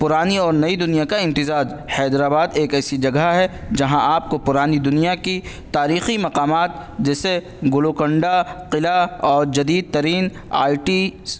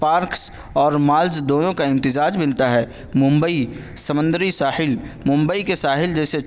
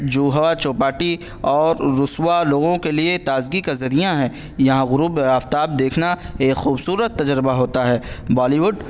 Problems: none marked